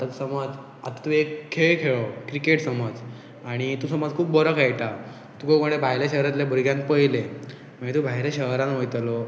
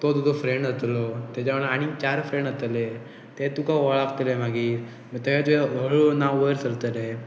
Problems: background sounds at intervals